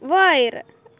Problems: none marked